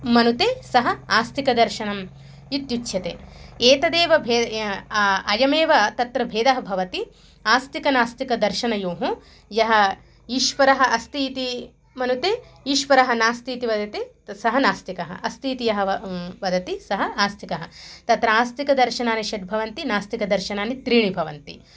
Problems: none marked